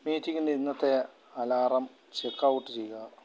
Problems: background sounds at intervals